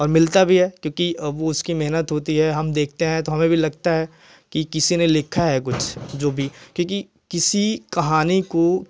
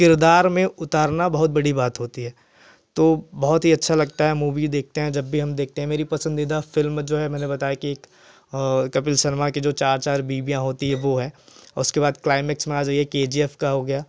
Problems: none marked